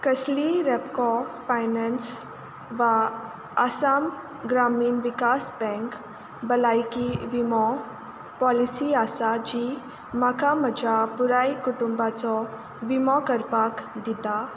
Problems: none marked